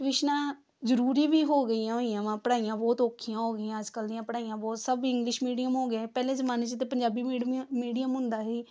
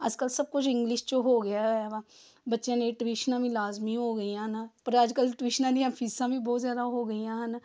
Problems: none marked